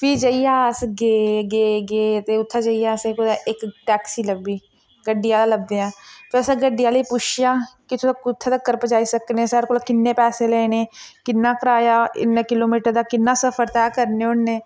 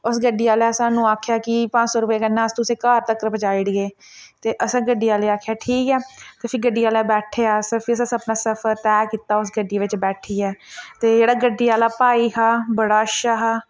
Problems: none marked